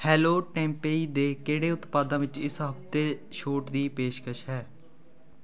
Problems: continuous background conversations